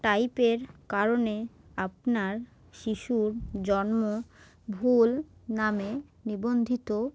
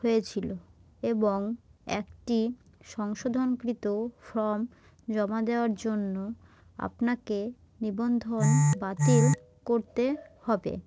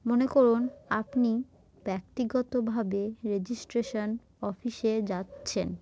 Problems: background sounds at intervals